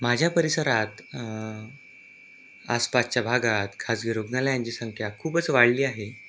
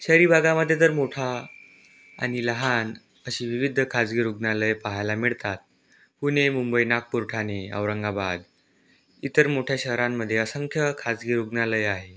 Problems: background sounds at intervals